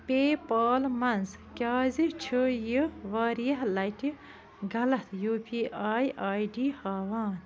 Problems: constant background noise